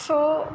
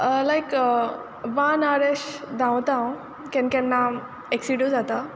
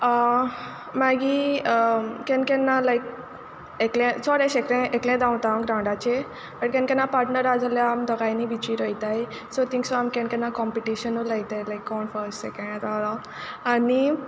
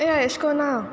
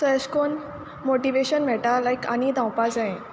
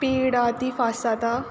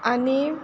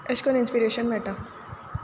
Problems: background sounds at intervals